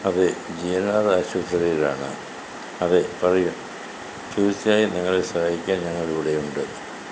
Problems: constant background noise